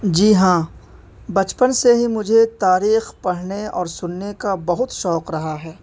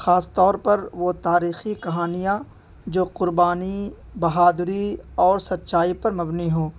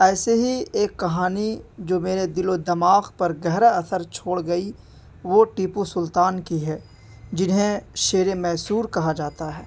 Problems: background sounds at intervals